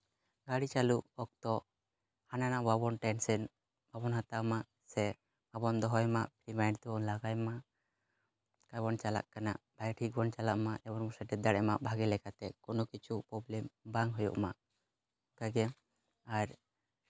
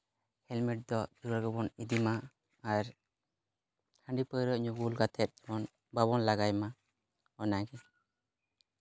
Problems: background sounds at intervals